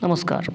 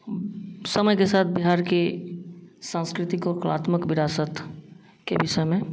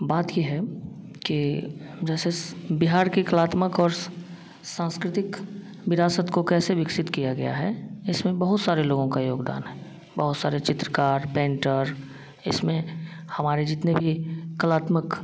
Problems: none marked